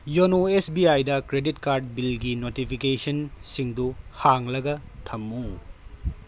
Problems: none marked